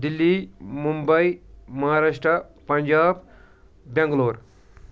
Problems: none marked